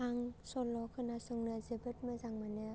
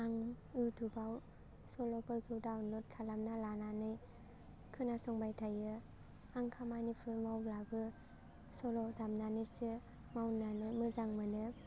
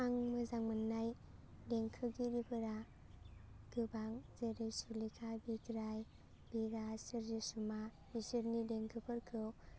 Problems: constant background noise